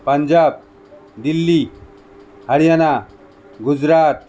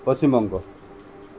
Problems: constant background noise